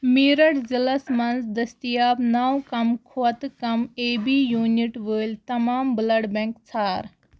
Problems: constant background noise